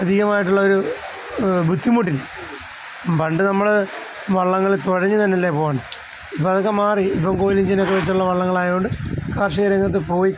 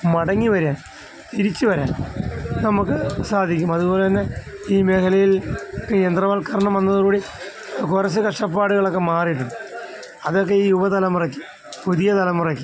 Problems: constant background noise